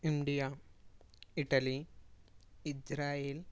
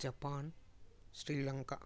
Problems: low volume